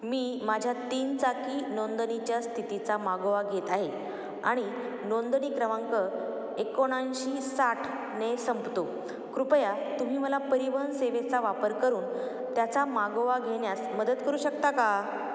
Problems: none marked